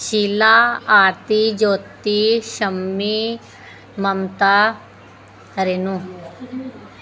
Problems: constant background noise